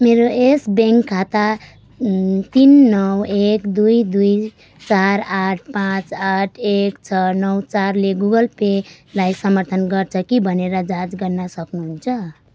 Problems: none marked